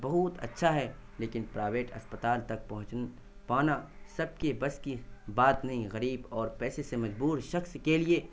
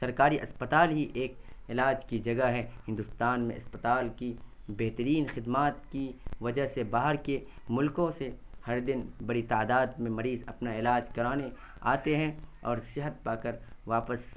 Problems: constant background noise